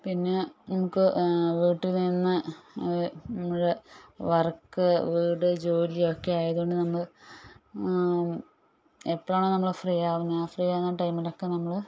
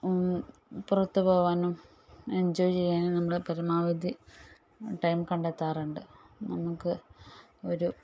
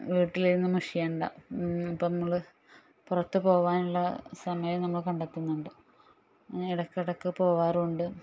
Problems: low volume